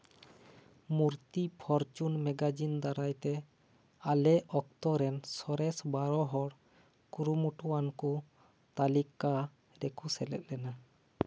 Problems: none marked